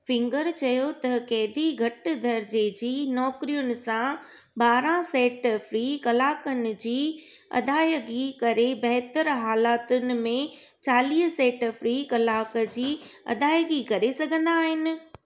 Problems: none marked